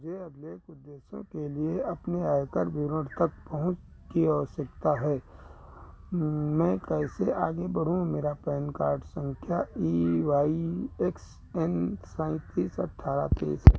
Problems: constant background noise